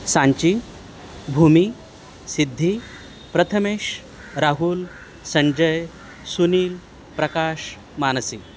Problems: constant background noise